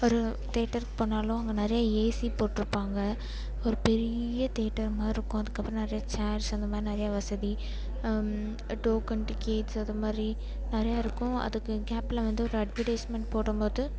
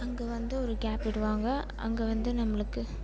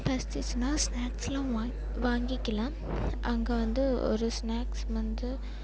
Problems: background sounds at intervals